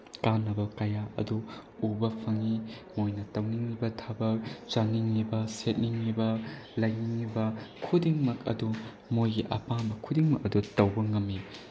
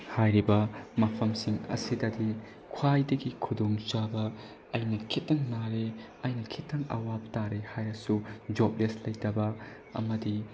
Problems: background sounds at intervals, low volume